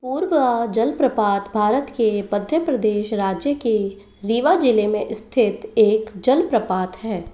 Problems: constant background noise